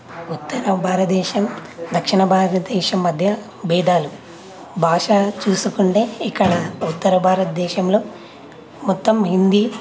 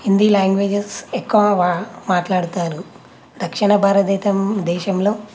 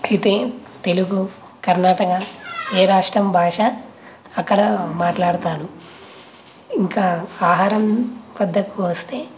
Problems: constant background noise, background conversations at intervals